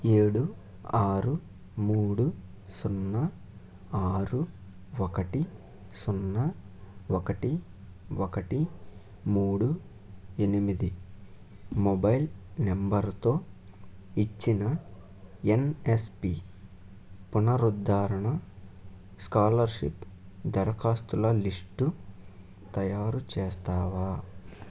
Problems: none marked